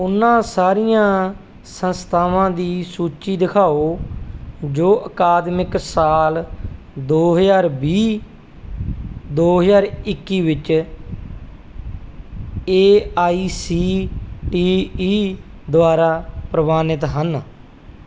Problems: none marked